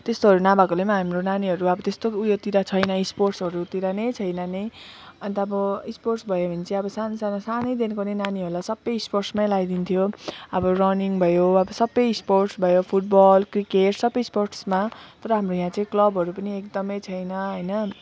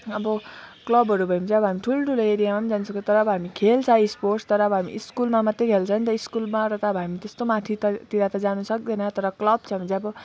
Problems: background sounds at intervals, low volume